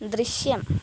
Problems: constant background noise